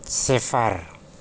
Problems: none marked